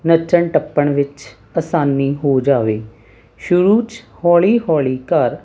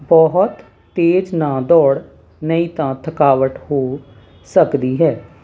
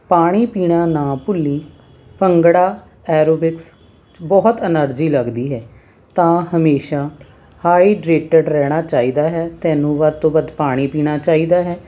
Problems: constant background noise